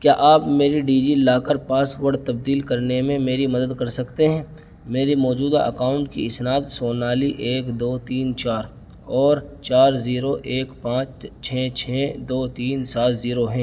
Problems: constant background noise